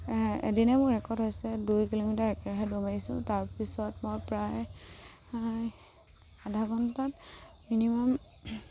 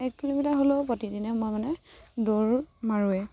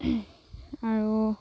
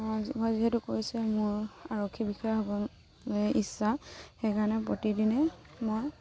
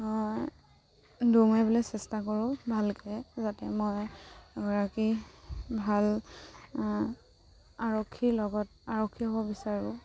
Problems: none marked